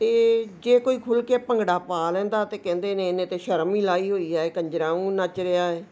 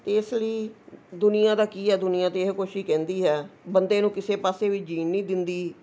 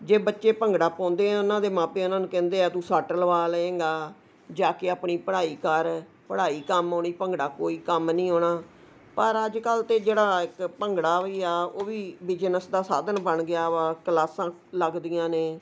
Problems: none marked